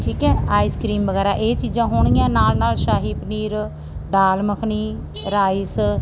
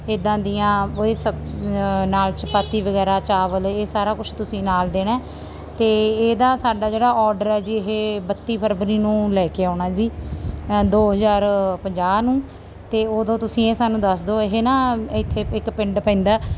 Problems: background sounds at intervals